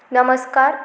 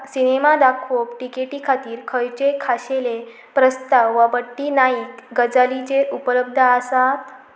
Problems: background sounds at intervals